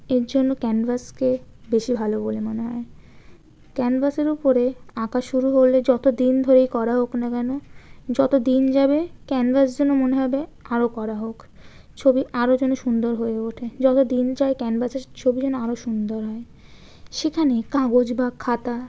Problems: background sounds at intervals